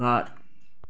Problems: none marked